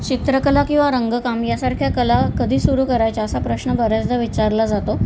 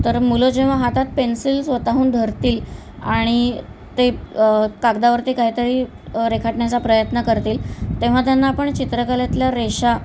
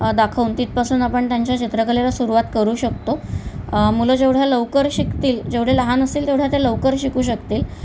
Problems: none marked